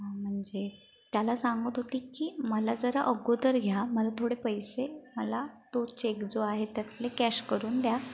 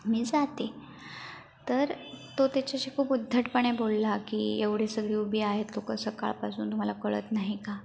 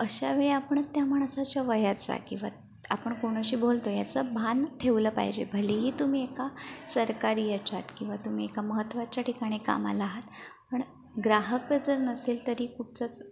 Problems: background sounds at intervals